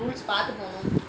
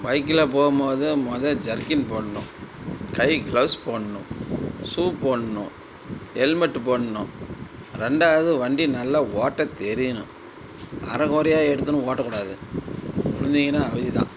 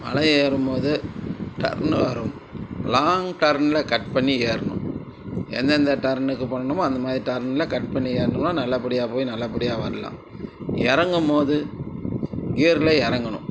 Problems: constant background noise, background conversations at intervals